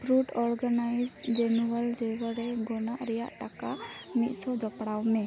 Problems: constant background noise, background conversations at intervals